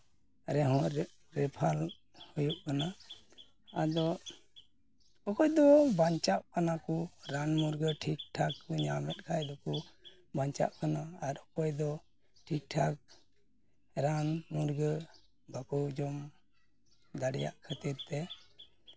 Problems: background sounds at intervals